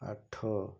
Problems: low volume